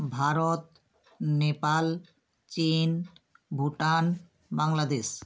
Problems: constant background noise